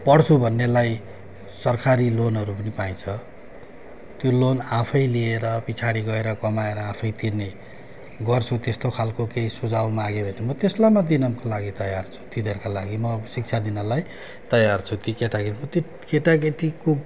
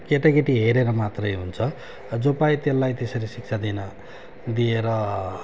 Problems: constant background noise